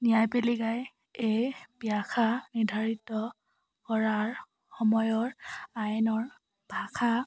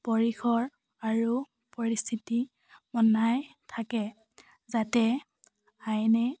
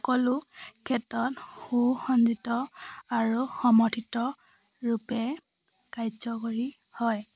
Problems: none marked